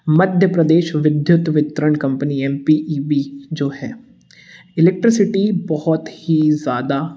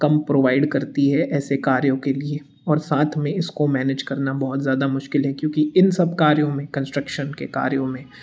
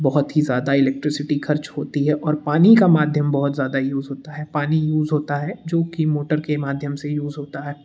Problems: background sounds at intervals